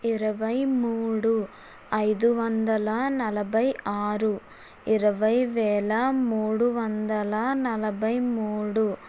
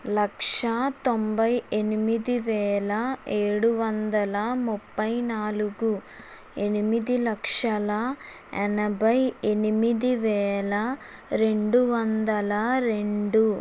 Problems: constant background noise